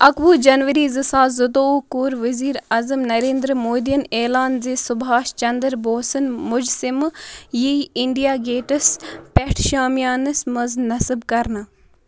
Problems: background sounds at intervals